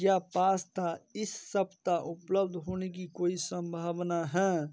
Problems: none marked